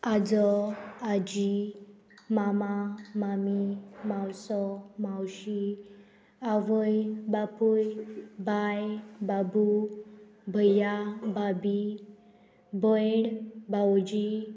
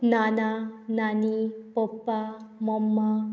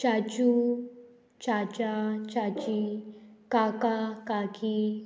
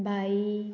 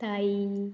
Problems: constant background noise